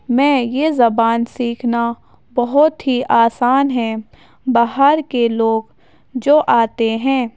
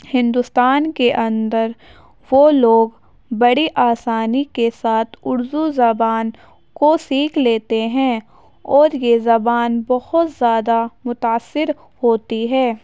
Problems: none marked